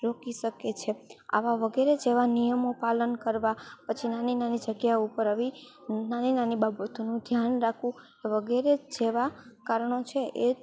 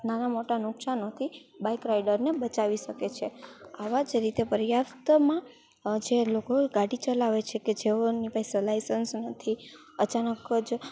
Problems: none marked